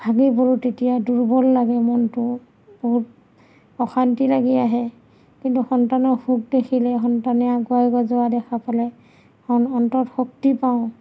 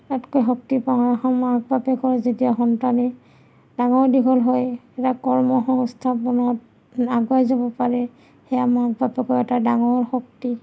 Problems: none marked